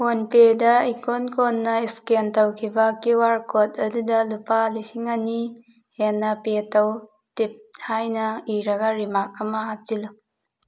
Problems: none marked